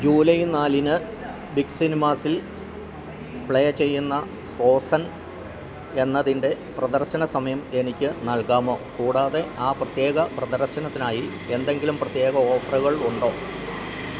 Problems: constant background noise